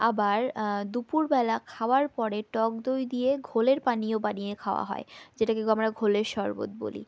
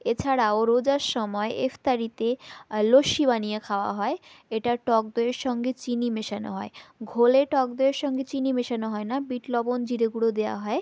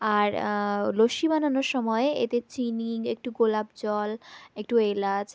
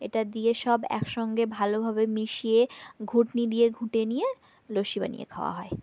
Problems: background sounds at intervals